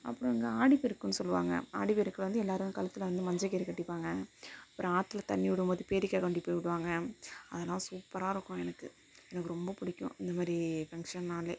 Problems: none marked